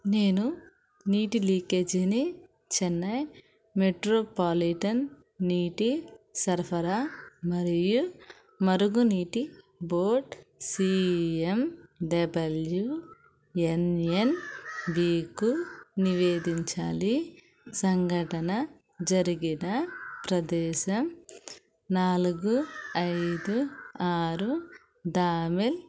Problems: none marked